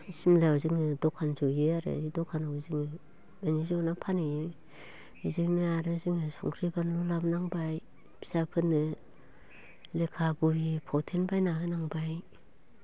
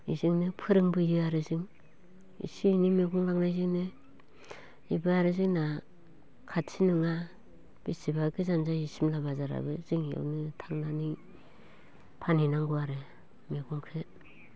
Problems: constant background noise